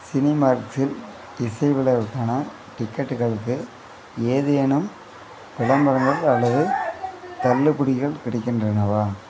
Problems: background sounds at intervals, background conversations at intervals